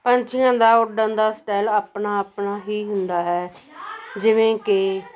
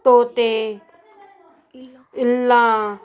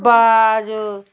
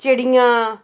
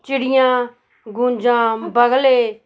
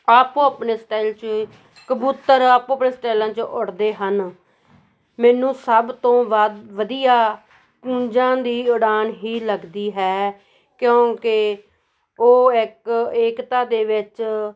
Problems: background conversations at intervals